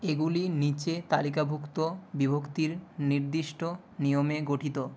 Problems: none marked